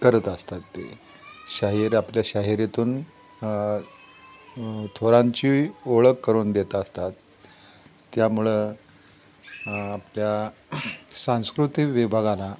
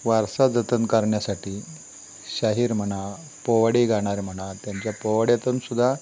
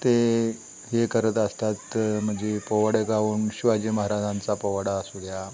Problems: constant background noise